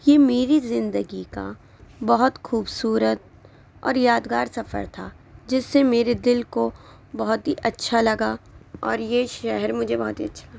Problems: constant background noise